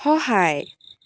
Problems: constant background noise